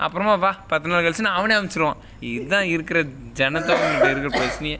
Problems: background sounds at intervals